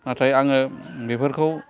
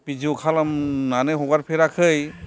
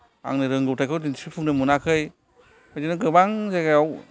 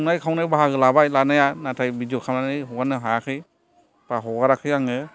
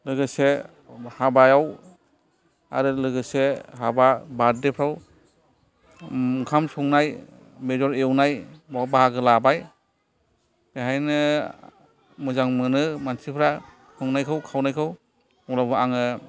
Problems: background sounds at intervals, background conversations at intervals